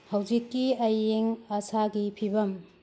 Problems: constant background noise